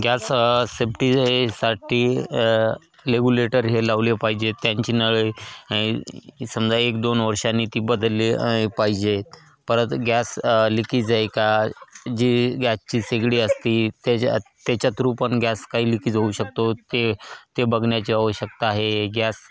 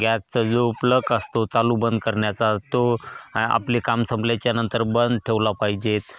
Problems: constant background noise, background conversations at intervals